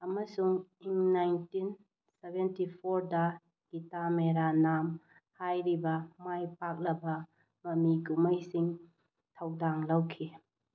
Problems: low volume